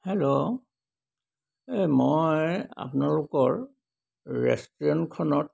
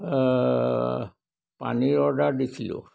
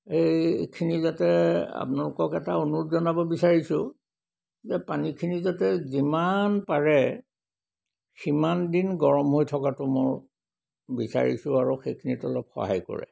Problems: none marked